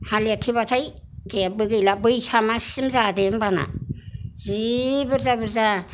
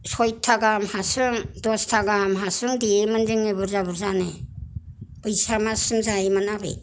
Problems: none marked